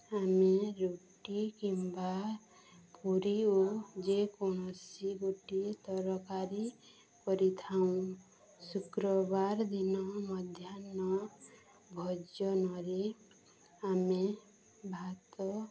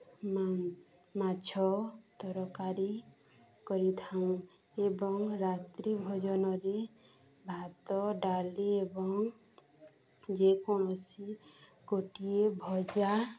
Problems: constant background noise, continuous background conversations